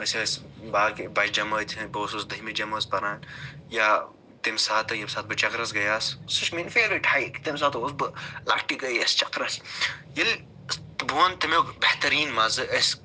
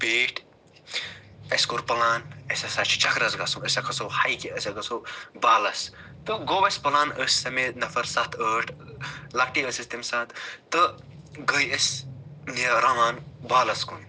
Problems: none marked